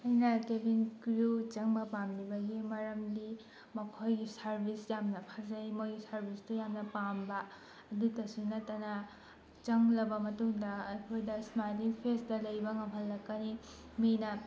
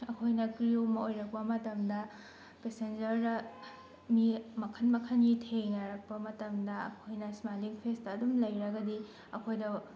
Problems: background sounds at intervals